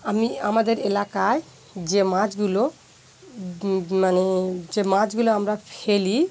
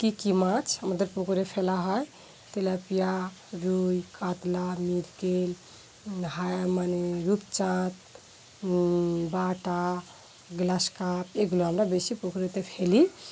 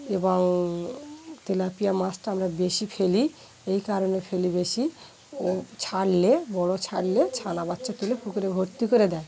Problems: background sounds at intervals, background conversations at intervals